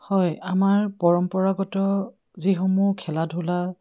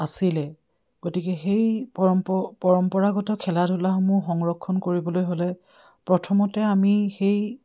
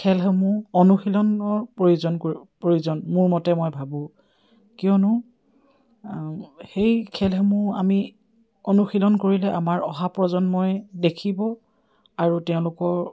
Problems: none marked